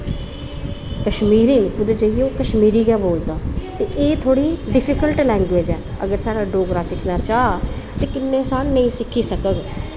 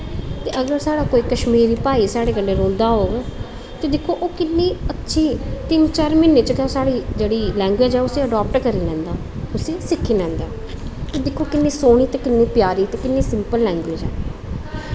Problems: constant background noise